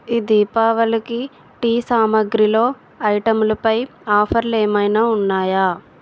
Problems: background sounds at intervals